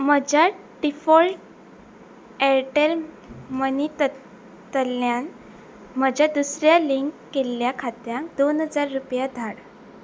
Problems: constant background noise